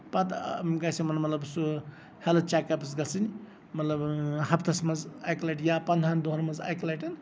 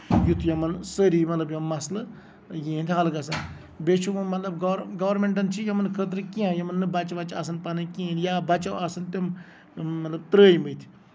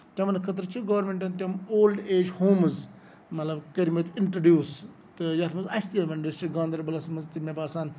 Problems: background sounds at intervals, background conversations at intervals